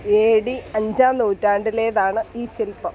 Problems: none marked